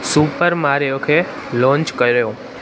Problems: constant background noise